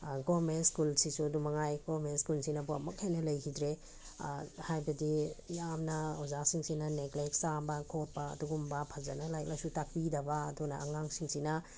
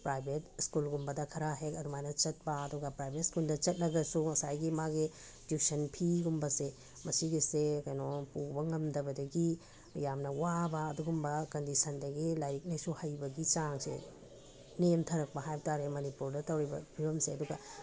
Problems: none marked